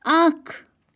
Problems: none marked